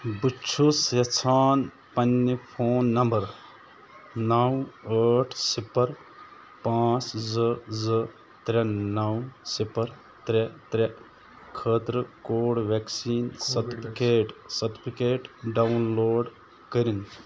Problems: constant background noise